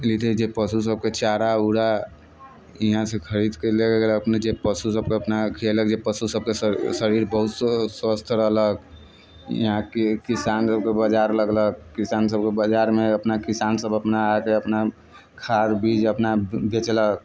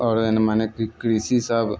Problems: background sounds at intervals